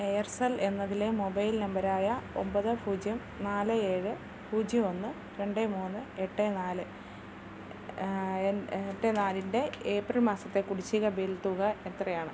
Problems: constant background noise